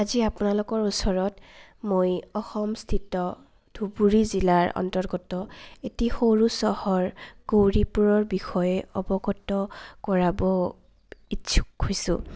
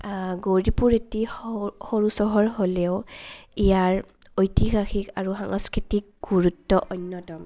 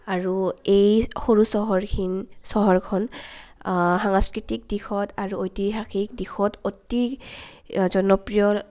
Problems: constant background noise